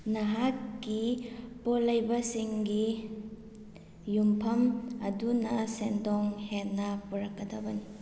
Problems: none marked